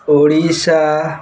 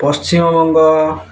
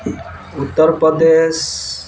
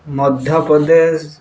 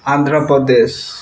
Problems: constant background noise